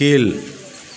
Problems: none marked